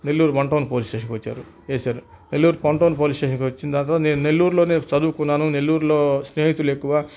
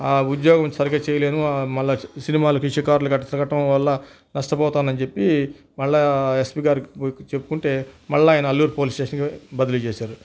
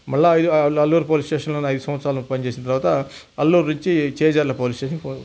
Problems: none marked